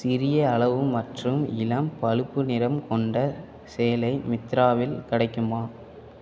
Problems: constant background noise